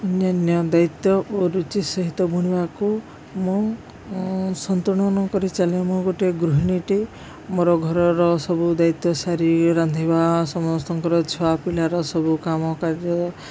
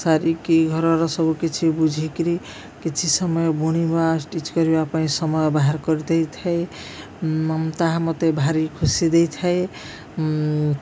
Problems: none marked